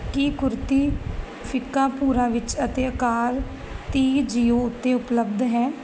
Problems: background sounds at intervals